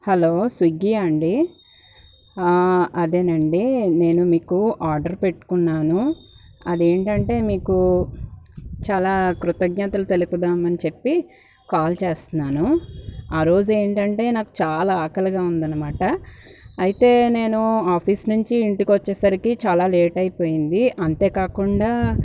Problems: background sounds at intervals